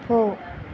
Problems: constant background noise